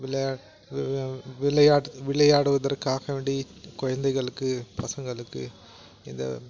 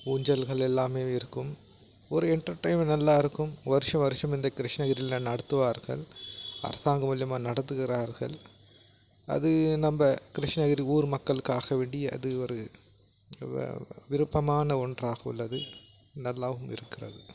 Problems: background sounds at intervals